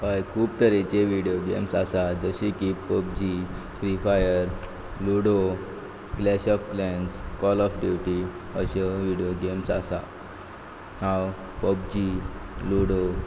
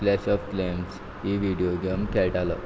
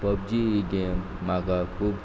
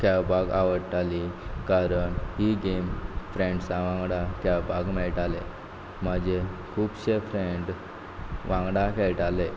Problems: background sounds at intervals